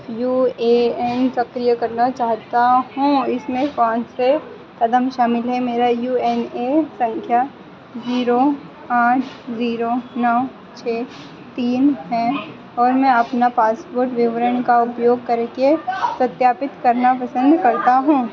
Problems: constant background noise